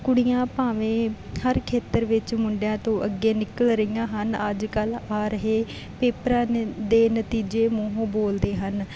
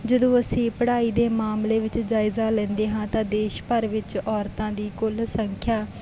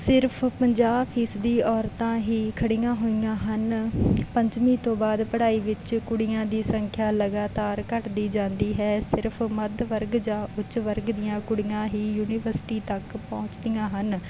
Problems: none marked